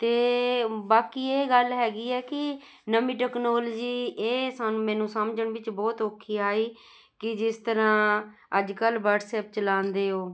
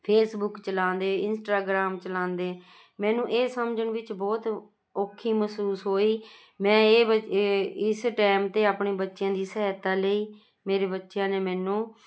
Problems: none marked